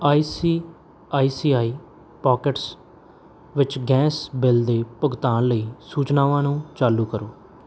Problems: background sounds at intervals